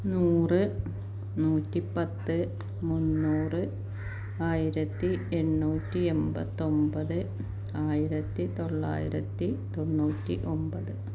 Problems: constant background noise, low volume